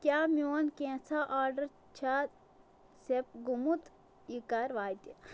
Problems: none marked